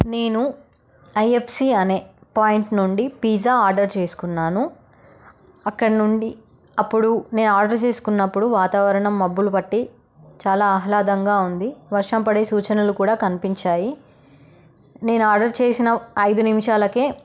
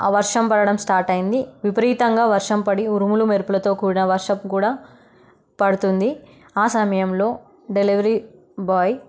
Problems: none marked